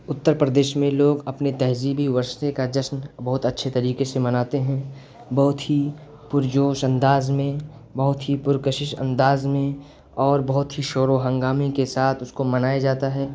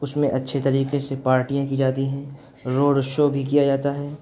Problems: constant background noise